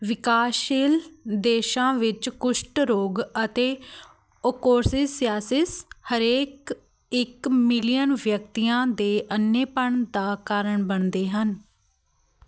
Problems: constant background noise